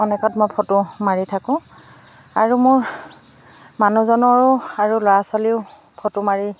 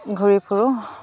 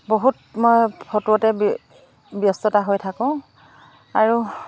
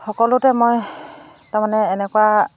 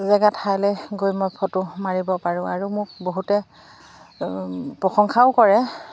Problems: constant background noise